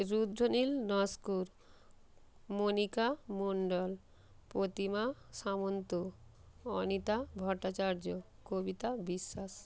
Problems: background sounds at intervals